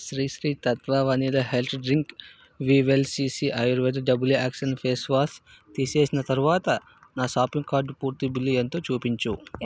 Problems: none marked